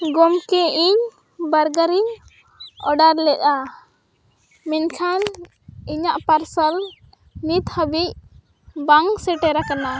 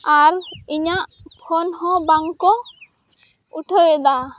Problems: none marked